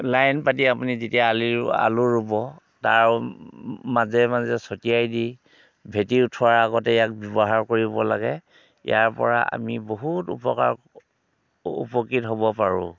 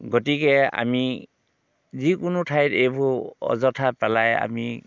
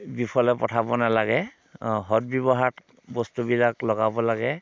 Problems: background sounds at intervals